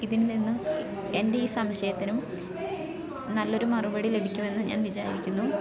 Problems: background sounds at intervals